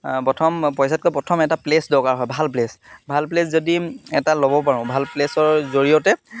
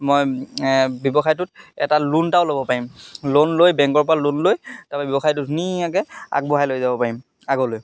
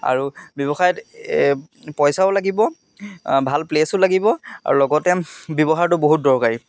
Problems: constant background noise, background conversations at intervals